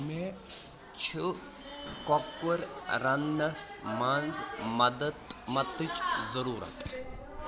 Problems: constant background noise, continuous background conversations